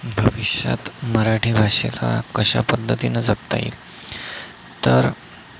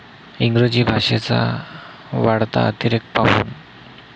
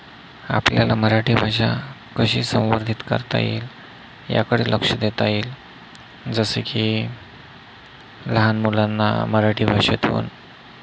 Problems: none marked